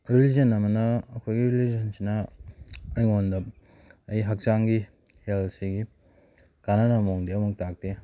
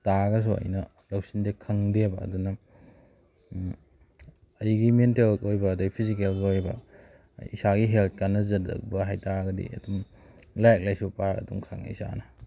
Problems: background sounds at intervals